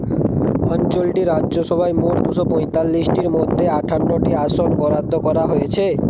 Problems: constant background noise